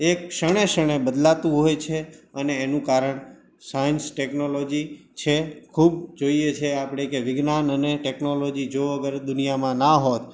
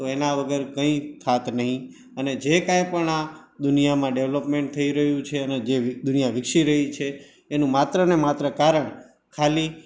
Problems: background sounds at intervals